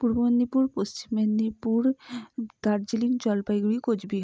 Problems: low volume